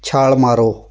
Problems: none marked